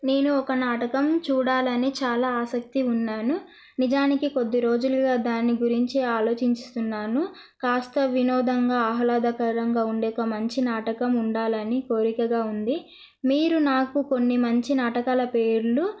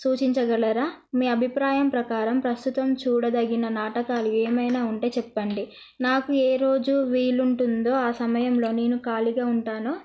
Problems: none marked